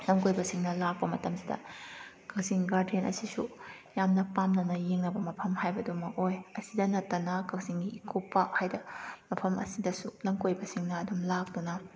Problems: none marked